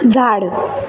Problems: none marked